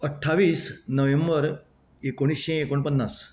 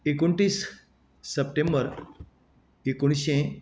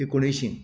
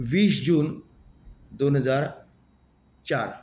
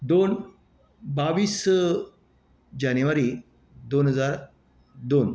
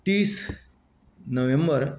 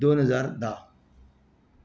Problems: none marked